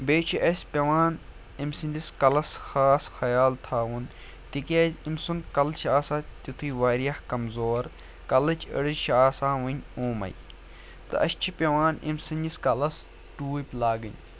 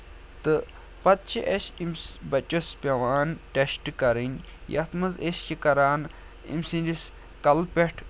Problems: none marked